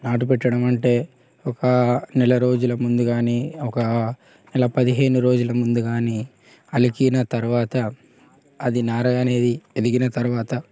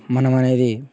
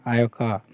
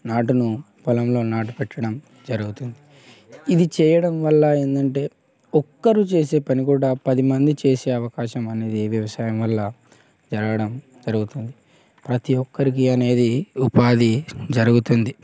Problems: constant background noise, background conversations at intervals